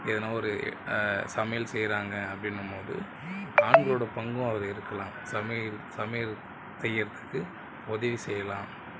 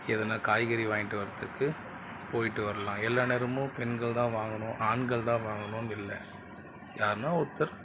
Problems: background sounds at intervals